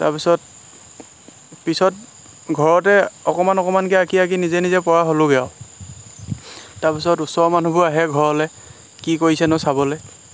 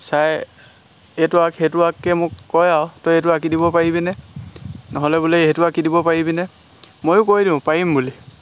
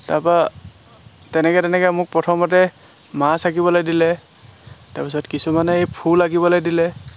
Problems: constant background noise